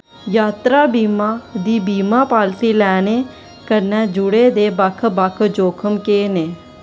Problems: constant background noise